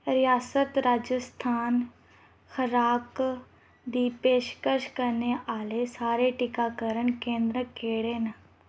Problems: none marked